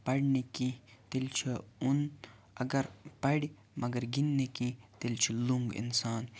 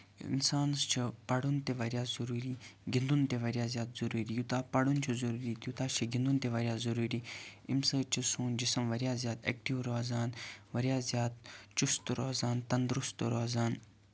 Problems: constant background noise